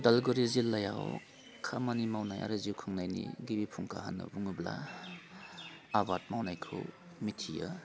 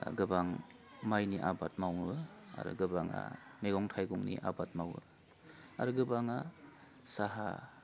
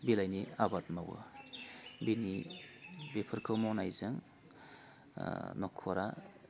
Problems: constant background noise